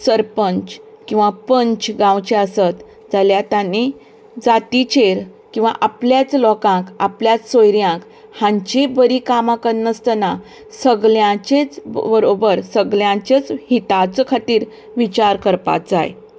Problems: constant background noise